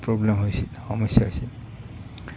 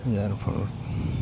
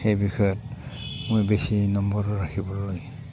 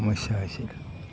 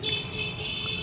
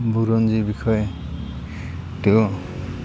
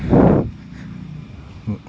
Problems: constant background noise